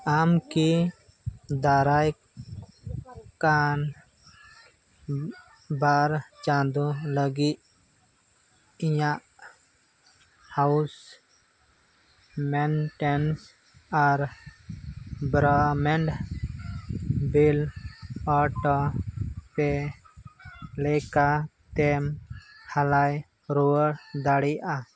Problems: constant background noise, background conversations at intervals